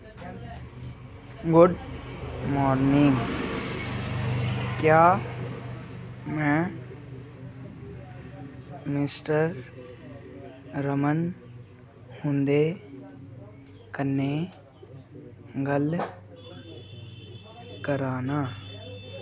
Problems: constant background noise